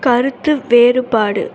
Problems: constant background noise